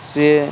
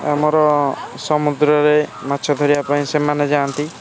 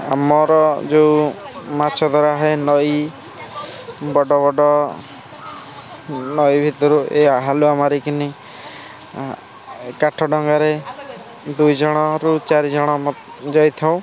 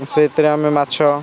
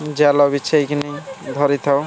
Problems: constant background noise, continuous background conversations